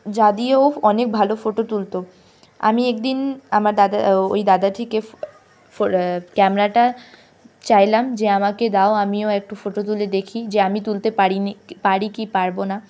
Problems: none marked